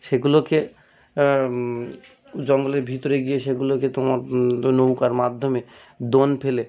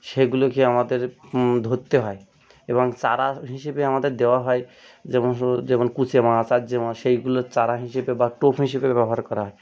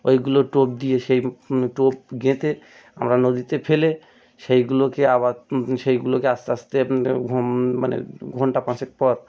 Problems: background sounds at intervals